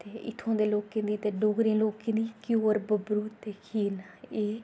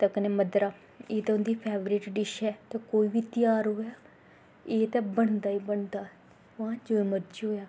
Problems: background sounds at intervals